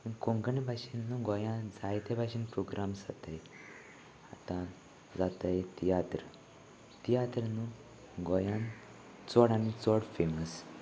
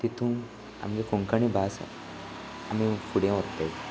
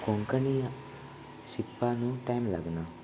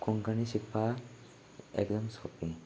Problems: none marked